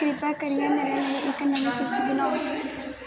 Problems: constant background noise